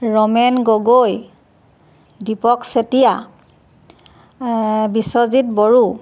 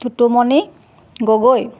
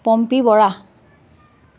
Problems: none marked